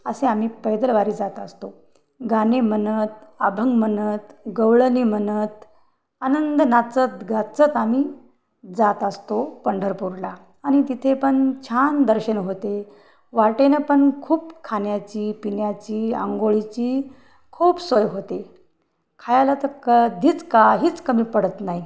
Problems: background sounds at intervals